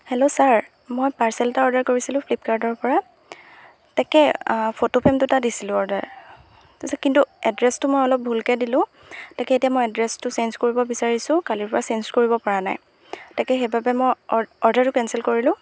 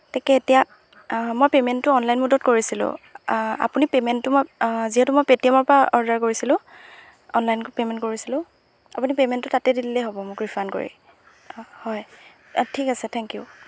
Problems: background sounds at intervals